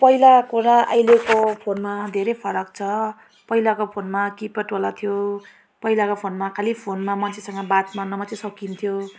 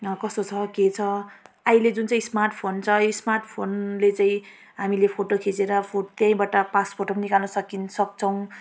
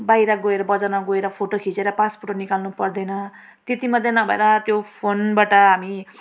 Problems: constant background noise